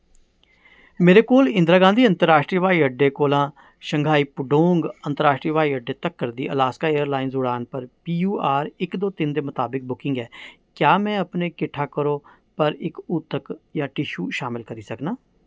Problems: background sounds at intervals